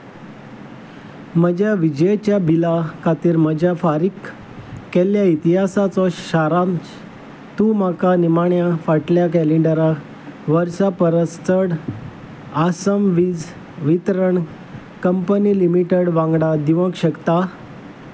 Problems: constant background noise